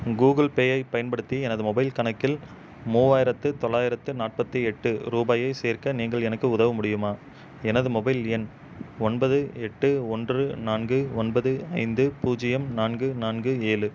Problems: constant background noise